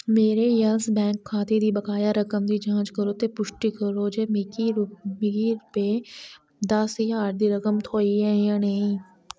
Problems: none marked